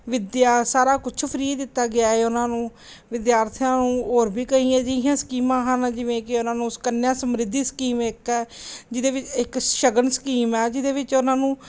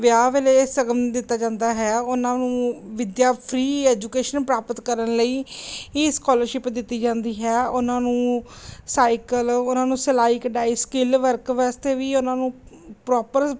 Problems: none marked